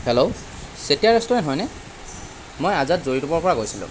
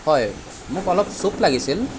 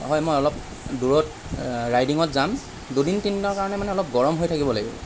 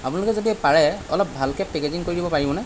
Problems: constant background noise